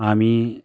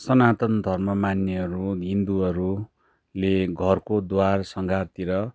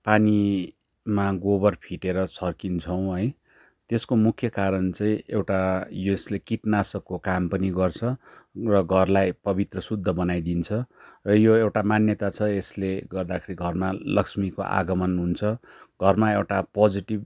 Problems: background sounds at intervals